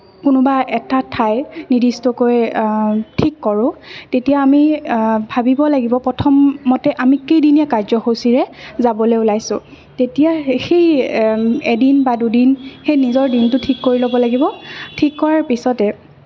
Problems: none marked